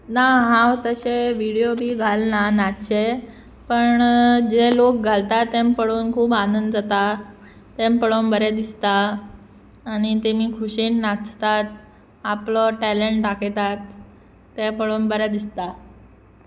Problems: background sounds at intervals